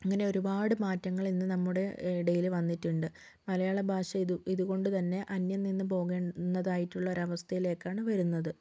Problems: none marked